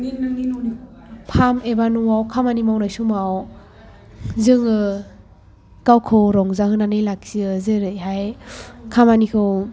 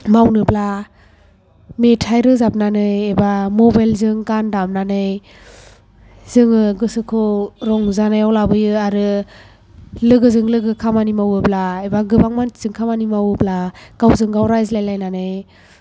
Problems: background sounds at intervals